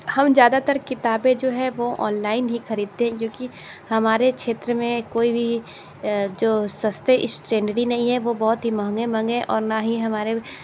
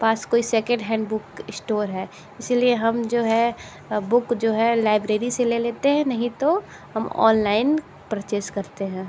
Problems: constant background noise